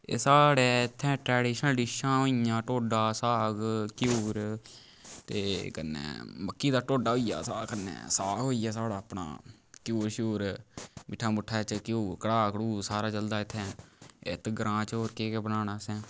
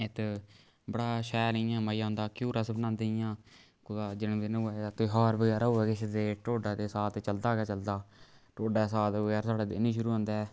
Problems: background sounds at intervals